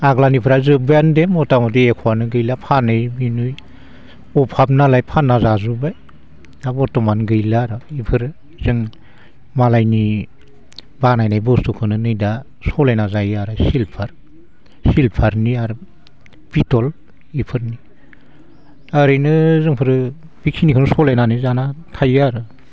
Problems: constant background noise